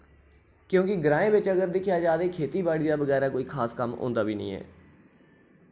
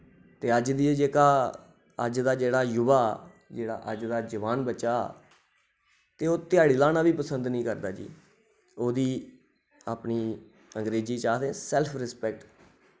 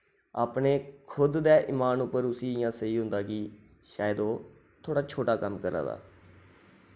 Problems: none marked